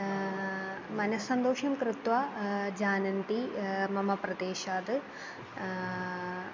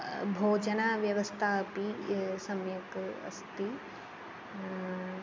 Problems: constant background noise